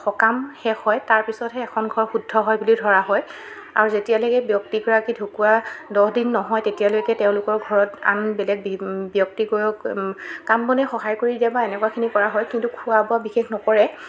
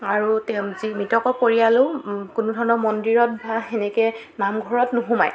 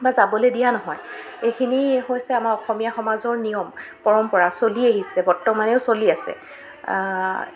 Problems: constant background noise